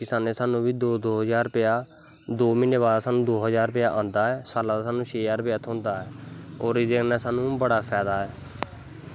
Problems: constant background noise